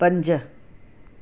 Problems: constant background noise